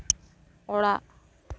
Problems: none marked